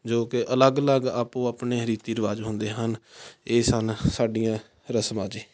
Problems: background sounds at intervals